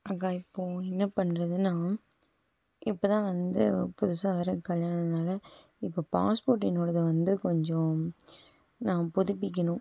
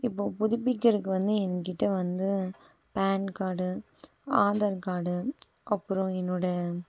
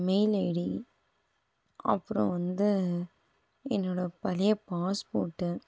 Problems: background sounds at intervals, background conversations at intervals